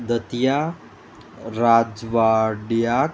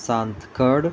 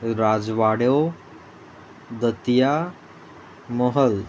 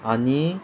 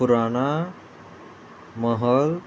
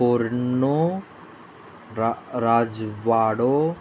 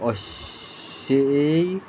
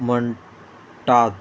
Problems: constant background noise